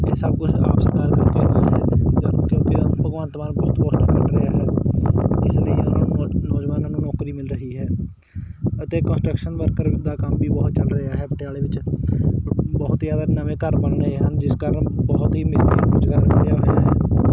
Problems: constant background noise